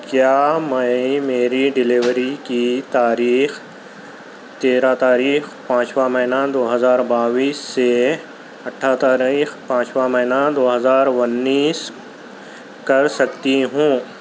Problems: constant background noise, background conversations at intervals